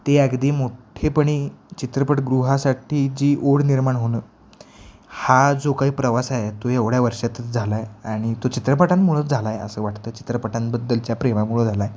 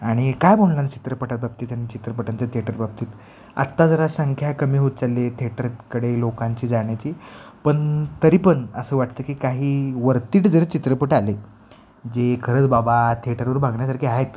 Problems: constant background noise